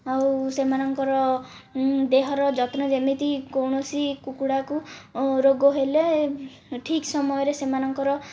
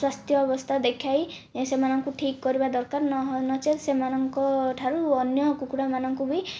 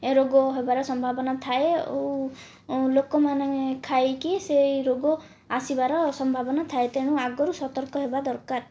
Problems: none marked